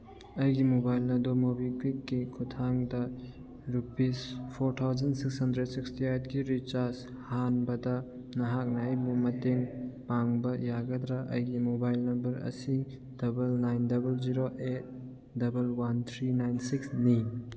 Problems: background sounds at intervals, background conversations at intervals